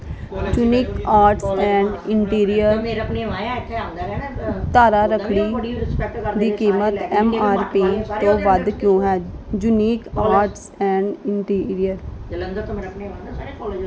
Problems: background sounds at intervals